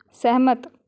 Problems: background conversations at intervals